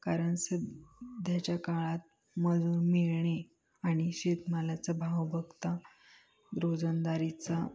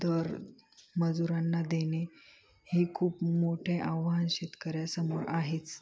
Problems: background sounds at intervals, background conversations at intervals